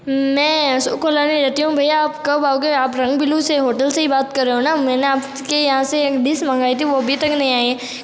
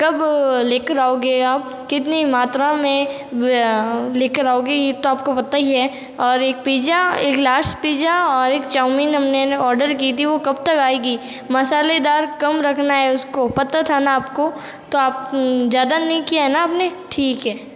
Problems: background sounds at intervals